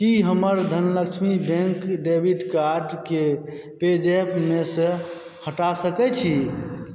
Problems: background sounds at intervals